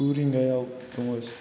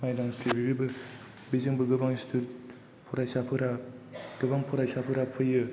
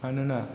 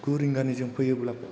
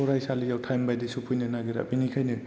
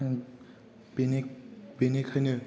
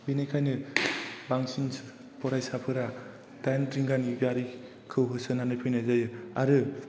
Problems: background sounds at intervals